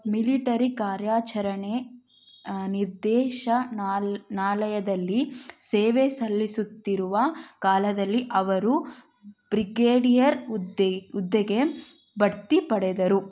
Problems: background sounds at intervals